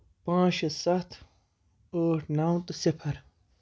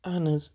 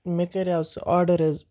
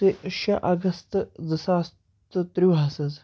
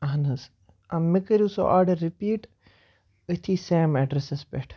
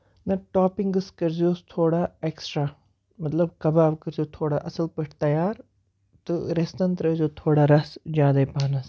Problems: background sounds at intervals